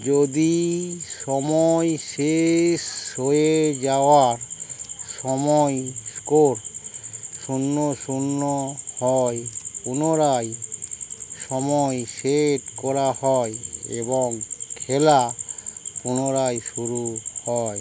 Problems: none marked